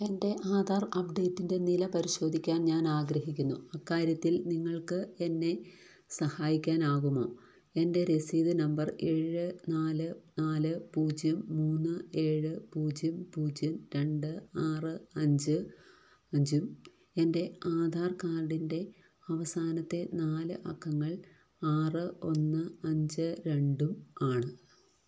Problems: low volume